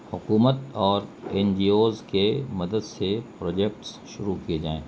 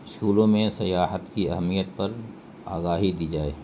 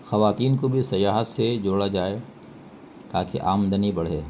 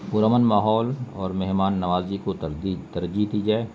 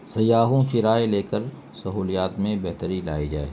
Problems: constant background noise